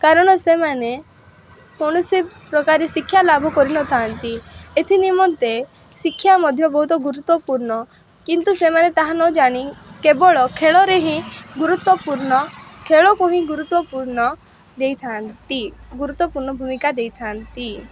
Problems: constant background noise